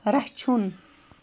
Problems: constant background noise